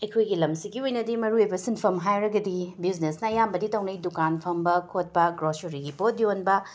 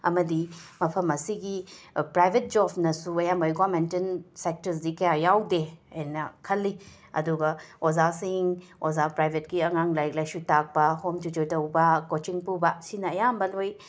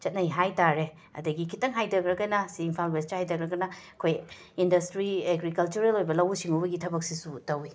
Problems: background sounds at intervals